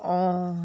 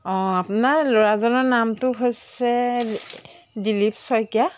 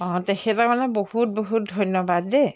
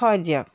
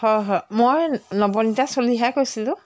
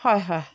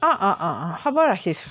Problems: background sounds at intervals